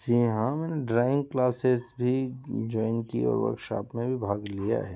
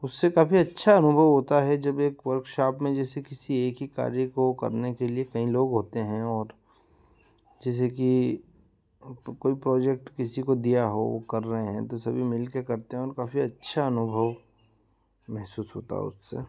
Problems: background sounds at intervals